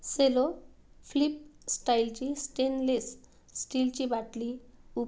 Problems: none marked